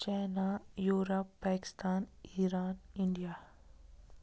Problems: constant background noise, low volume